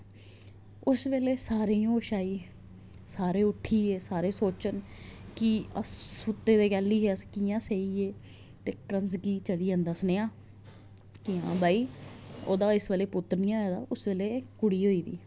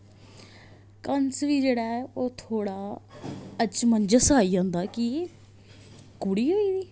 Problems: none marked